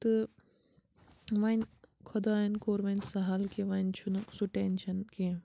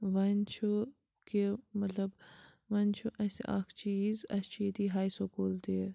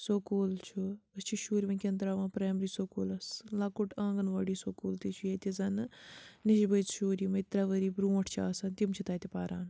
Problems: none marked